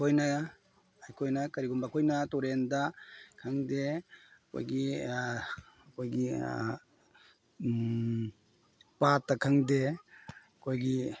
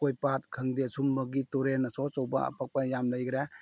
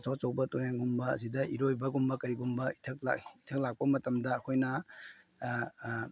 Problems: none marked